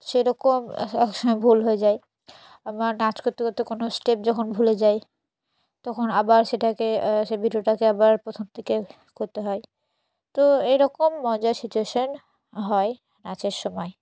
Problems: none marked